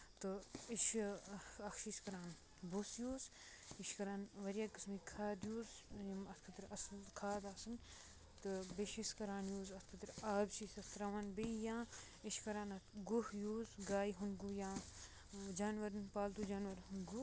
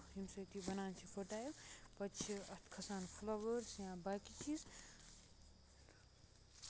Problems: background sounds at intervals, low volume